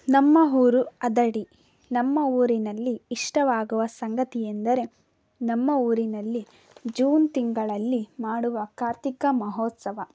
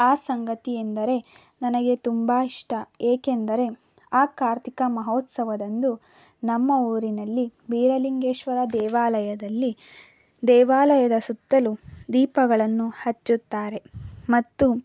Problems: none marked